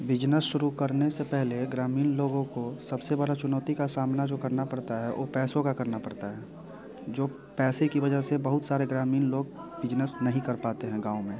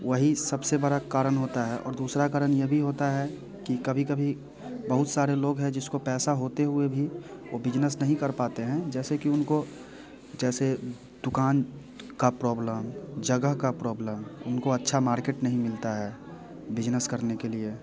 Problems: constant background noise, continuous background conversations